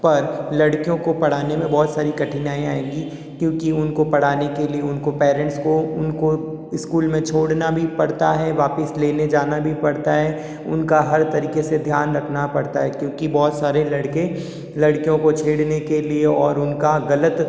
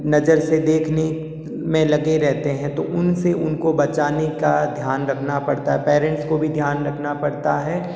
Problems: background sounds at intervals, echo